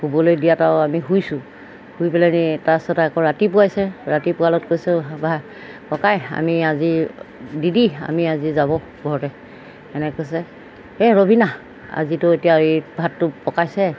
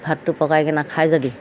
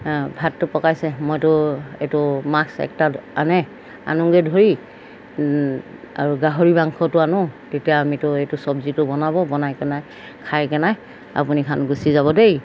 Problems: background sounds at intervals